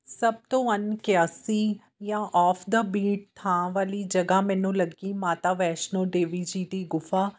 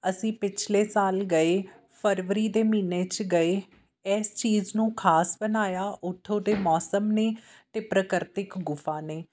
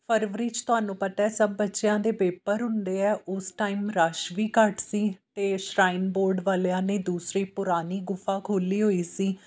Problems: none marked